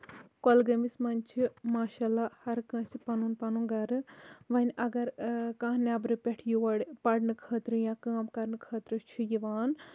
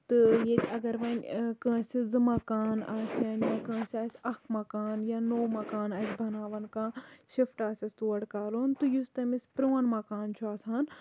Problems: background sounds at intervals